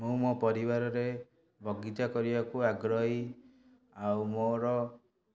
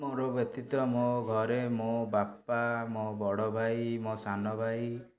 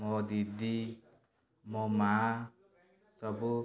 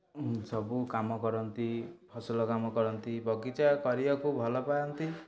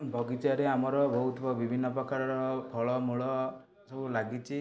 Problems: background conversations at intervals